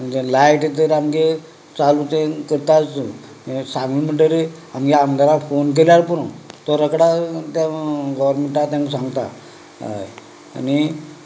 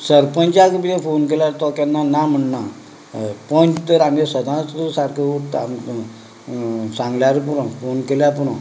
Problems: background conversations at intervals